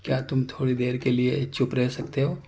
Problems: none marked